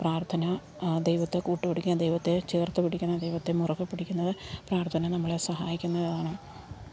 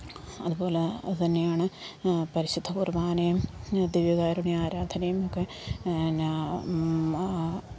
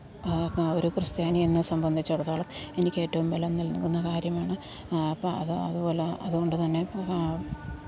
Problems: constant background noise, low volume